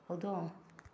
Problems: none marked